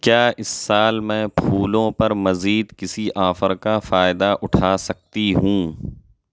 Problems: none marked